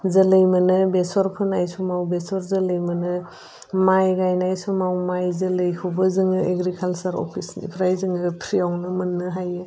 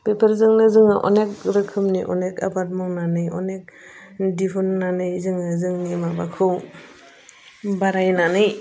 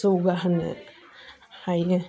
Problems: constant background noise